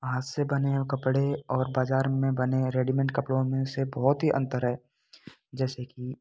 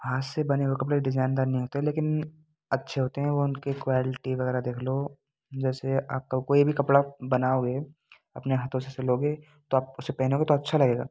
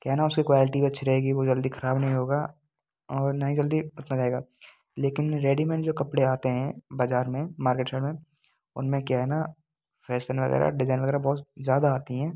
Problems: none marked